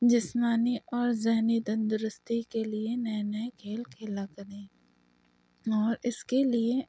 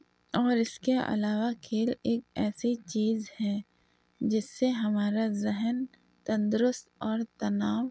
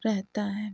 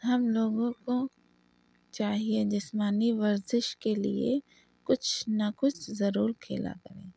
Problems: constant background noise, low volume